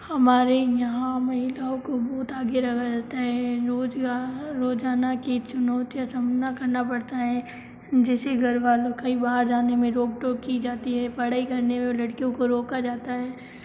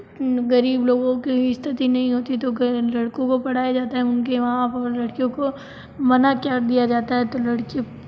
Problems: low volume